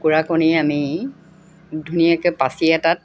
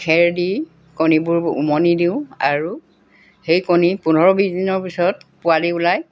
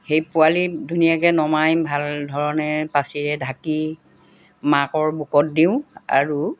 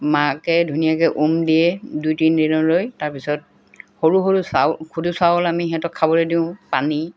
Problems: constant background noise